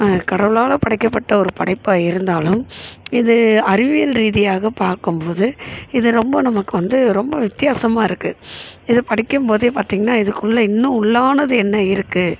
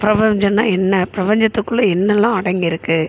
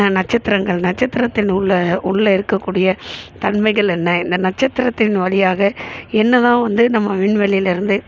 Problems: constant background noise